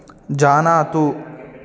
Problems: continuous background conversations